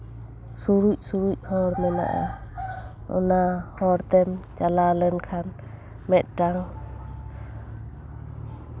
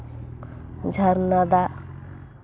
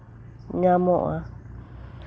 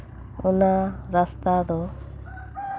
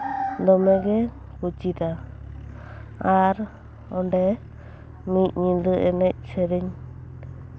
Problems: constant background noise